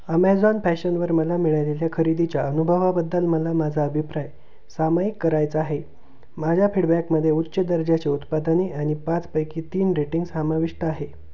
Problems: none marked